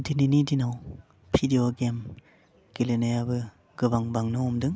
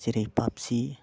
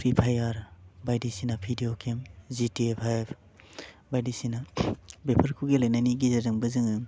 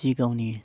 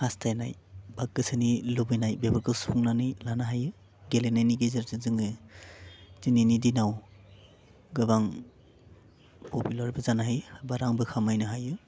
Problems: none marked